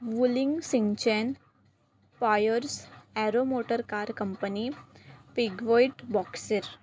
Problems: none marked